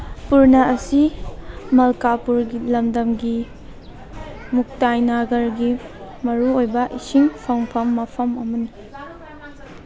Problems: background conversations at intervals